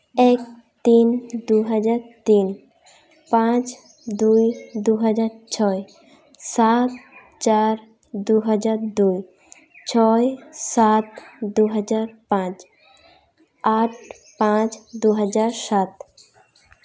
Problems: none marked